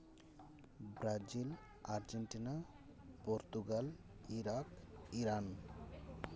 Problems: continuous background conversations